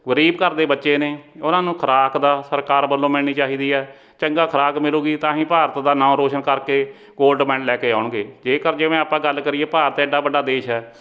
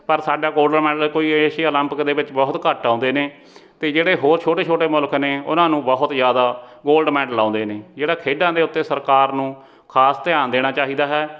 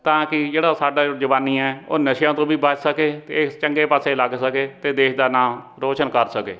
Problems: background conversations at intervals